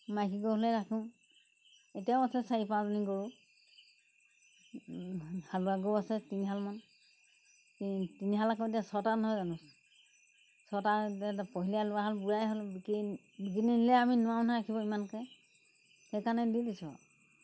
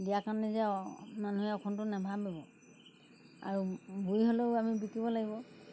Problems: background sounds at intervals